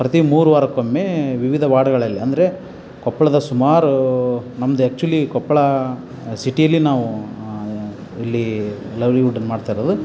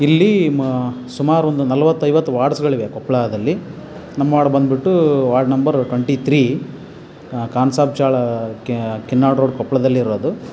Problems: none marked